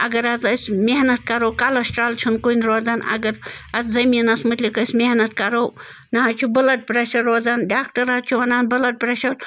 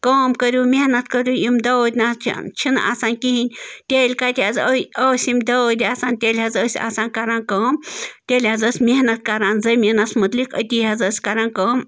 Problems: constant background noise